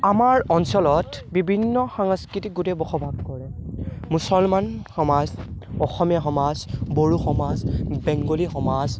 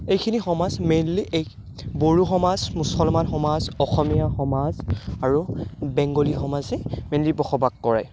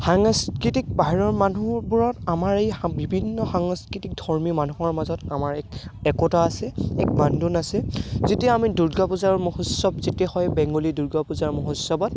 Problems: background sounds at intervals